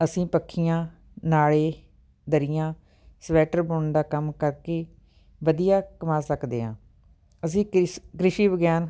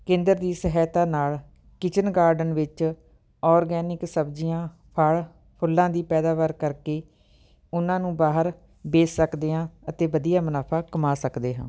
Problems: none marked